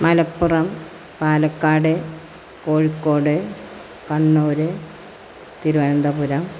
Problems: constant background noise